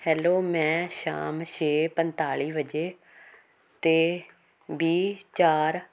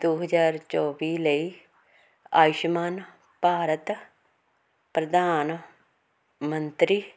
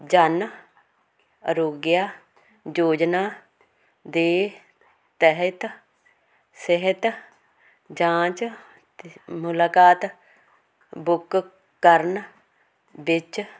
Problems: none marked